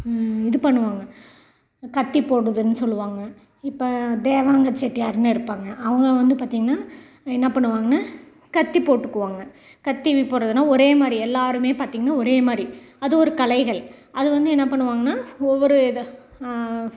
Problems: background sounds at intervals